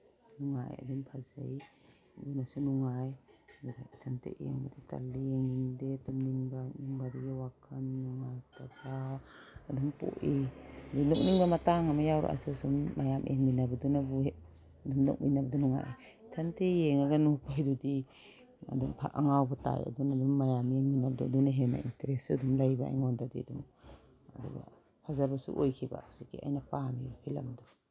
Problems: constant background noise